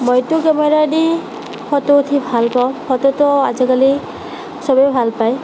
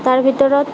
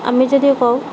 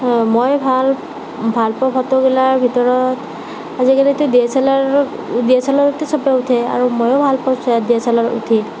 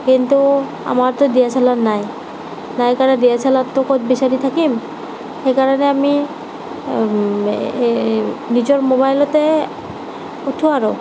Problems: constant background noise